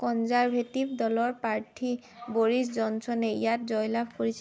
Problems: constant background noise